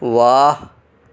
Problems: constant background noise